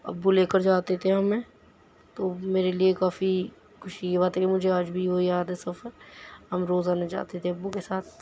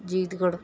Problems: none marked